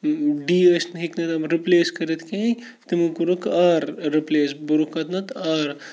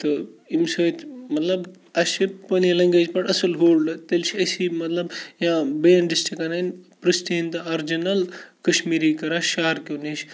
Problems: none marked